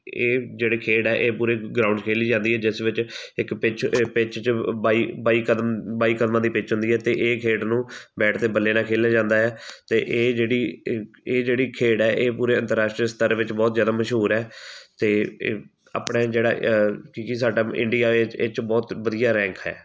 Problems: none marked